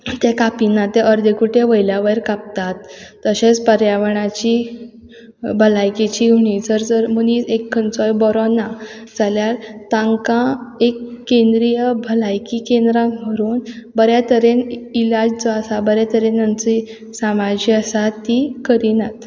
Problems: background sounds at intervals